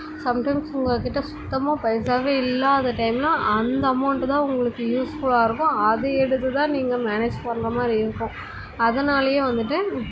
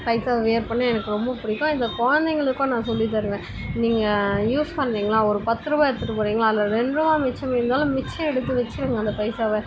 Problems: constant background noise, continuous background conversations